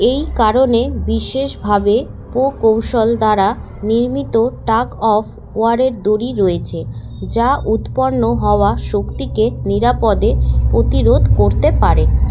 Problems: constant background noise